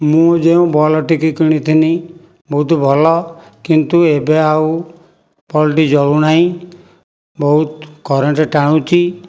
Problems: none marked